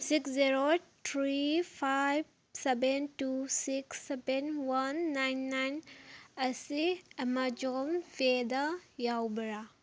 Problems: background sounds at intervals